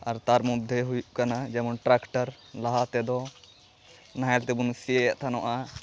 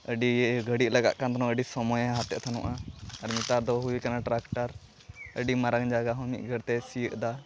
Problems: constant background noise, continuous background conversations